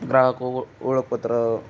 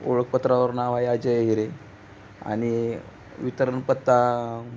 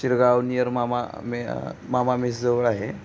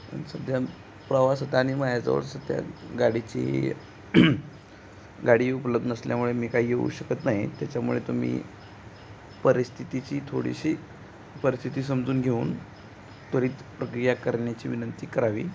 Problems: constant background noise